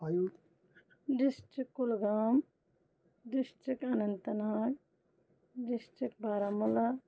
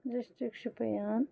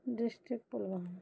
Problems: low volume